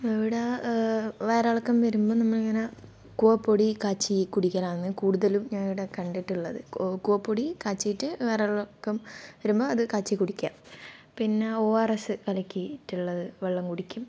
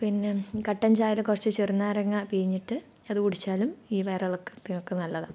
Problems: low volume